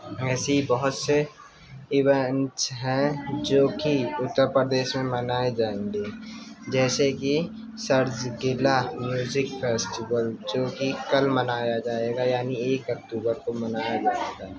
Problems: constant background noise, continuous background conversations, low volume